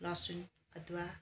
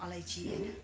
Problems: constant background noise